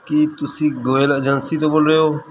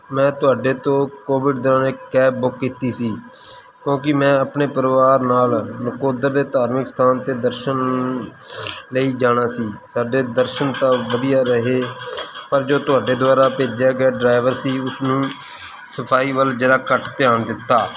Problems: background sounds at intervals